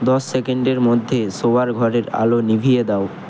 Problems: constant background noise